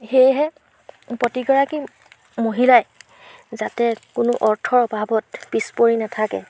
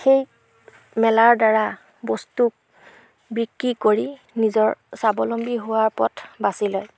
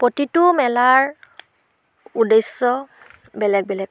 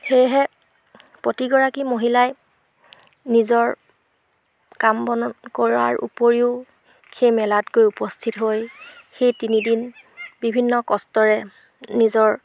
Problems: background sounds at intervals